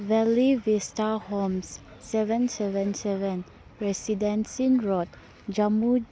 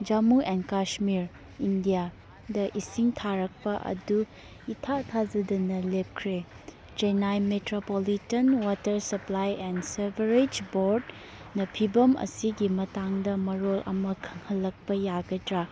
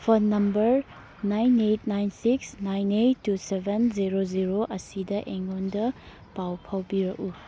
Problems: background sounds at intervals